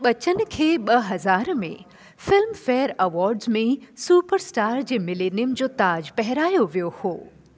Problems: constant background noise, echo